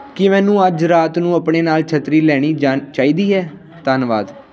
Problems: none marked